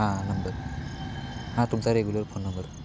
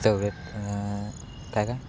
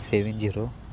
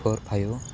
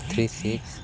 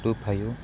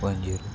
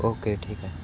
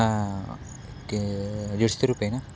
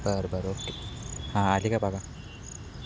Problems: constant background noise